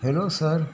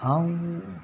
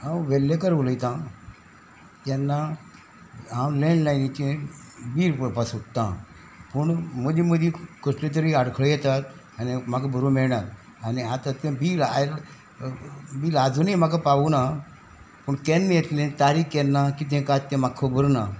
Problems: background sounds at intervals